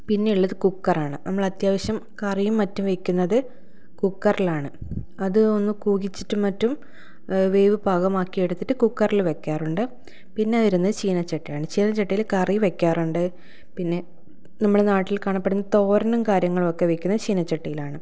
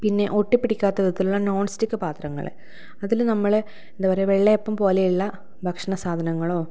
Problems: none marked